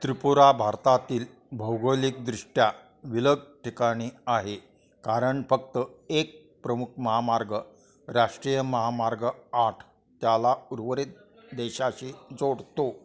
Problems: constant background noise, continuous background conversations